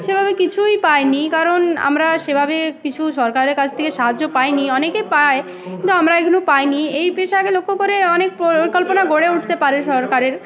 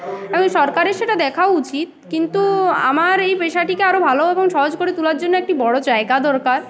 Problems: none marked